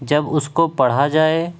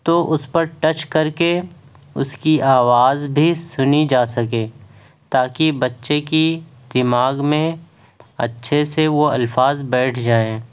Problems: background sounds at intervals